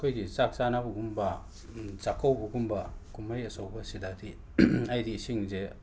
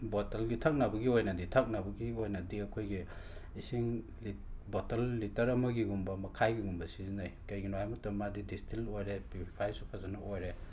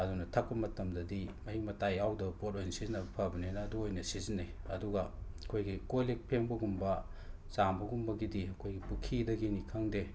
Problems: constant background noise